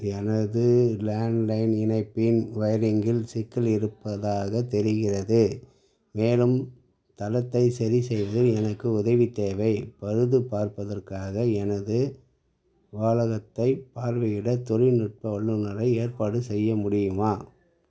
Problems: background sounds at intervals, low volume